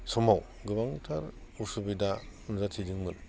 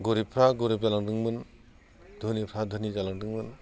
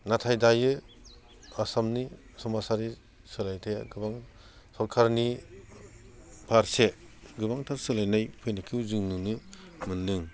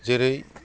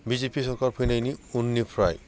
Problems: none marked